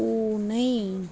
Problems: background sounds at intervals